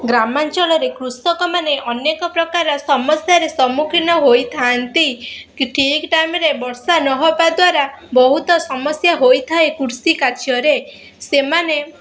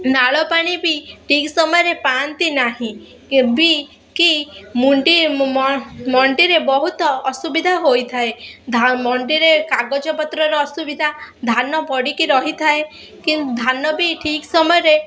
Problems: constant background noise, continuous background conversations